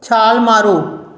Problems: background conversations at intervals